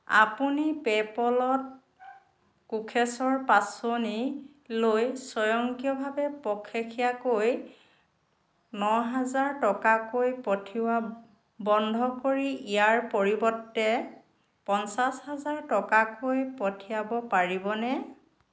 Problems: constant background noise